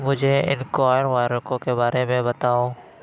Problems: constant background noise